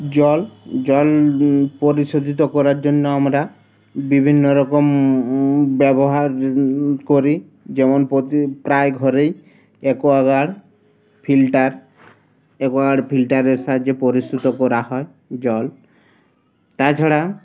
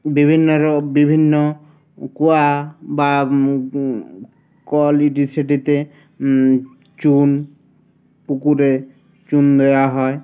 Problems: constant background noise